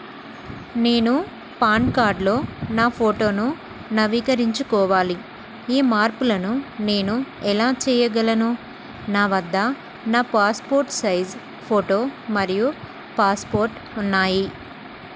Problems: constant background noise